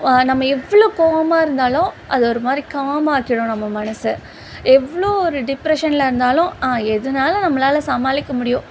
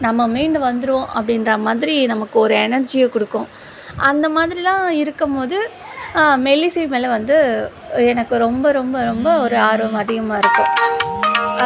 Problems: constant background noise